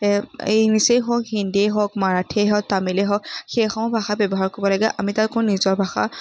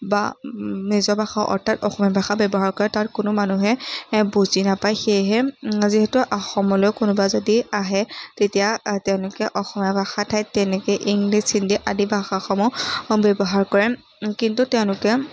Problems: none marked